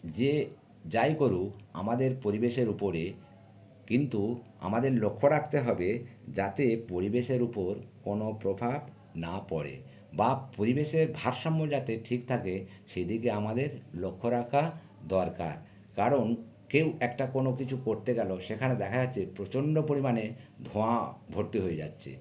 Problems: none marked